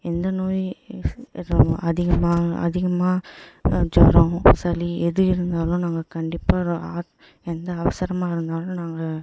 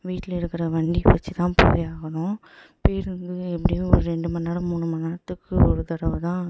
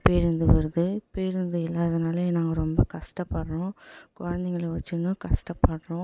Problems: echo, low volume